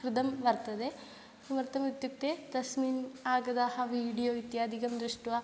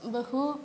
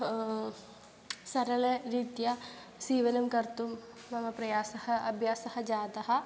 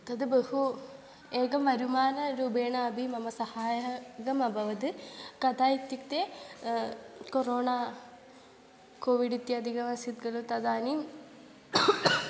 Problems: background sounds at intervals